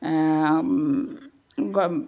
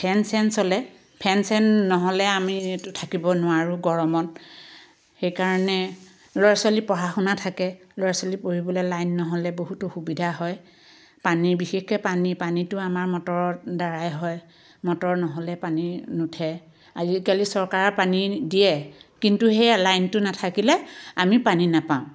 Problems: background sounds at intervals